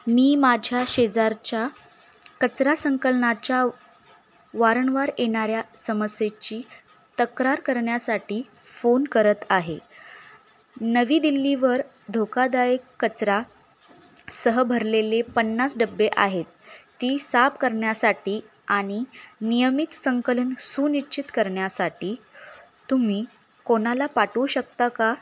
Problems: none marked